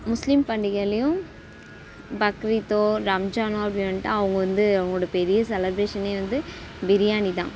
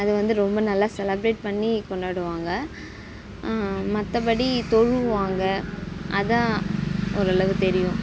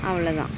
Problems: none marked